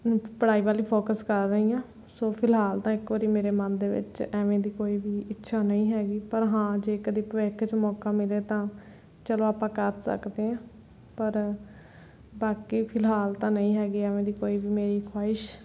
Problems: background sounds at intervals